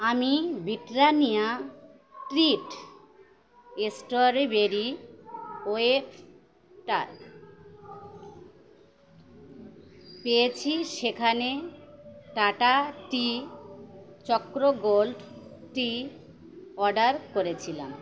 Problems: none marked